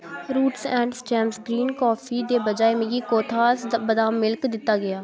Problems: constant background noise